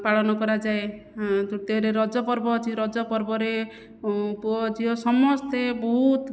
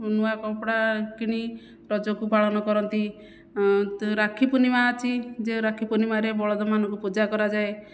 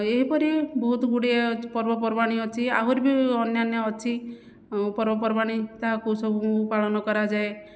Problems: none marked